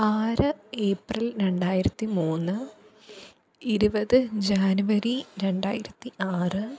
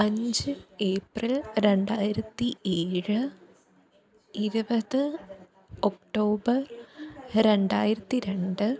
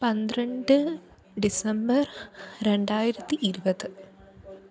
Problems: none marked